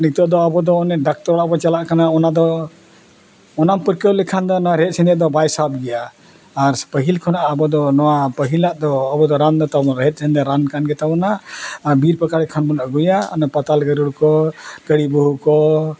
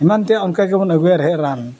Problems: none marked